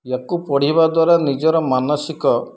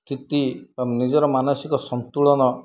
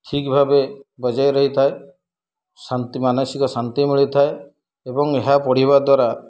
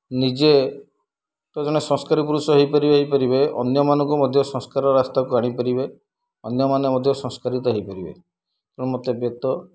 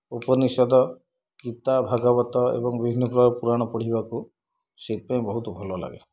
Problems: low volume